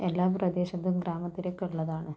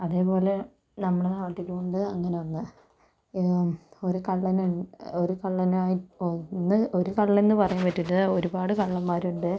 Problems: none marked